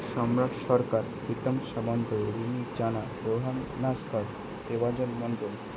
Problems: constant background noise